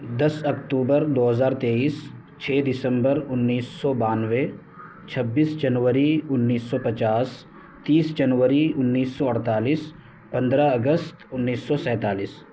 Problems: background sounds at intervals